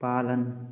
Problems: echo